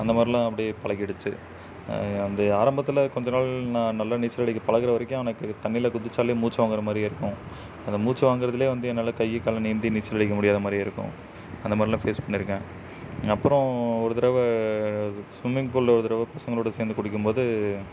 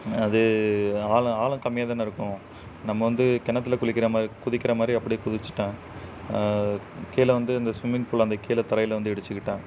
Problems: none marked